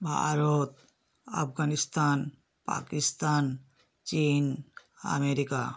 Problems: none marked